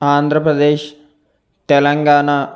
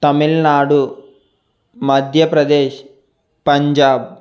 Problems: constant background noise